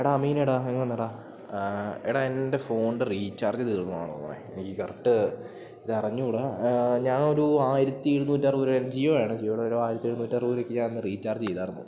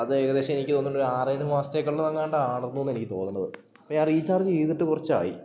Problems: none marked